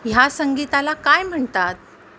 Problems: none marked